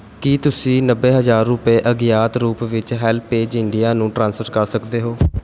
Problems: none marked